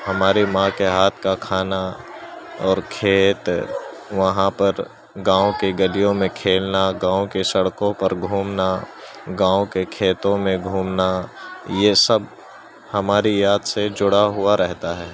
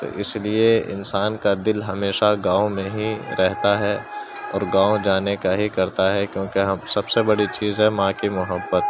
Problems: constant background noise, continuous background conversations